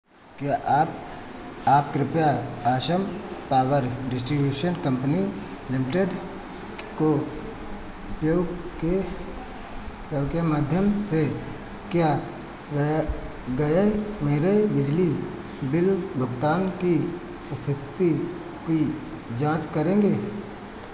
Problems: constant background noise